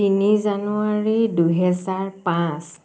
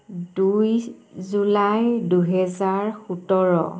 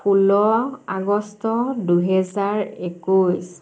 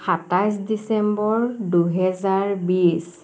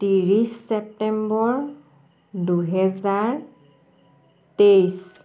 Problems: background sounds at intervals